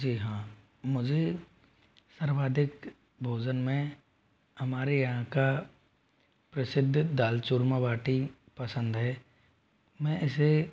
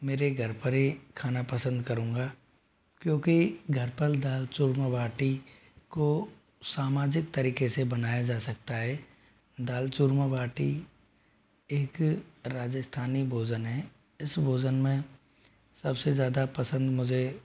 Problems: low volume